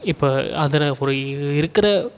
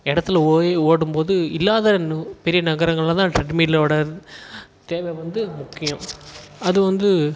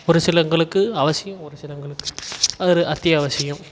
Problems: none marked